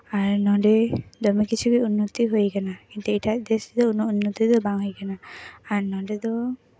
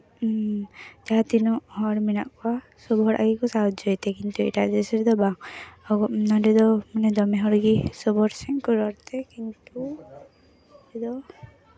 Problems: background conversations at intervals